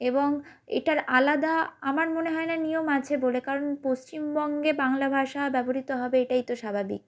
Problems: none marked